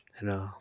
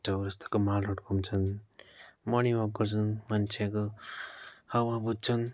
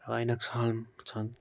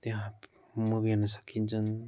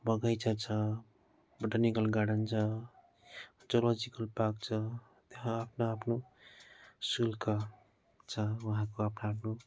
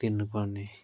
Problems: background sounds at intervals